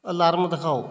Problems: constant background noise